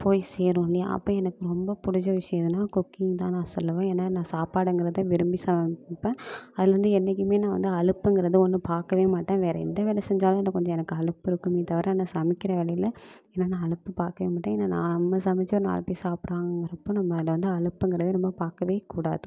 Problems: background sounds at intervals